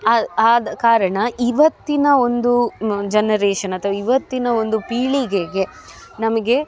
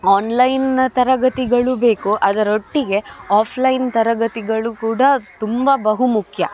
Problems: none marked